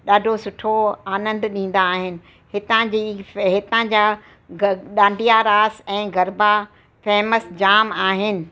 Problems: constant background noise